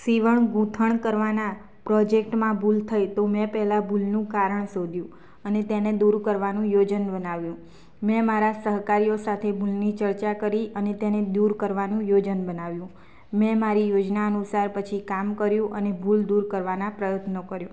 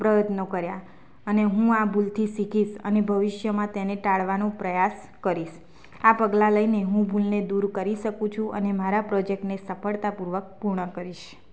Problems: constant background noise